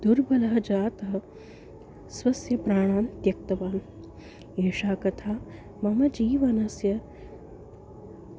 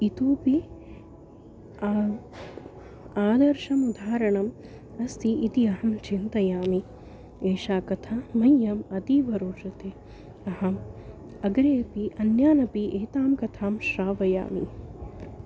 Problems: constant background noise